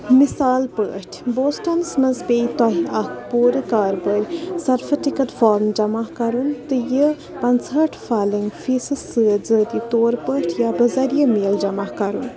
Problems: constant background noise, continuous background conversations